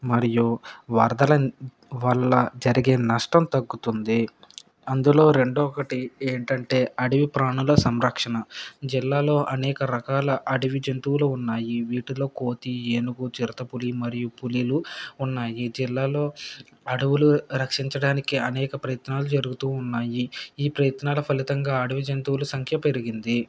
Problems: background sounds at intervals